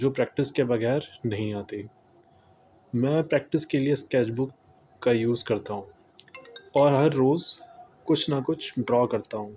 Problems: constant background noise